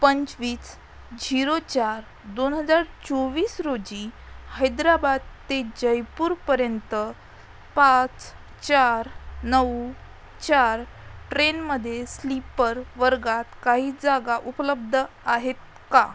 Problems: background sounds at intervals